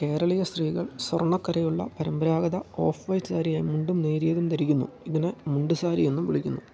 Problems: low volume